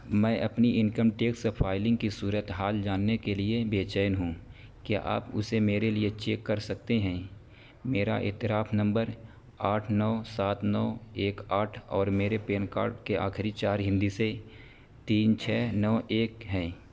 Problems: constant background noise